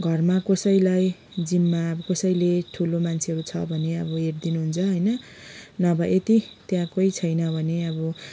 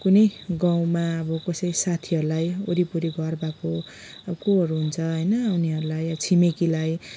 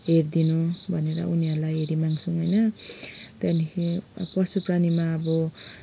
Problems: background sounds at intervals